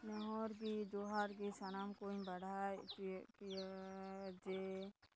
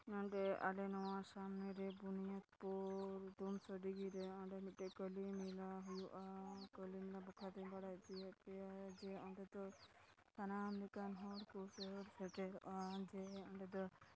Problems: constant background noise, low volume